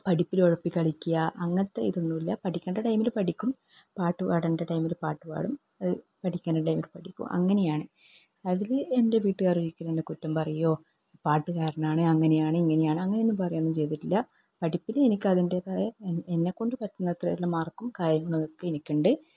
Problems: low volume